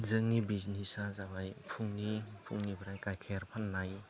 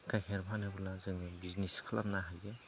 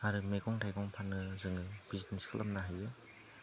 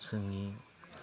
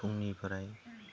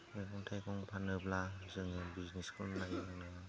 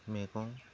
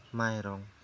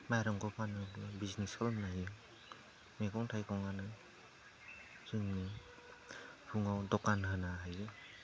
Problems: low volume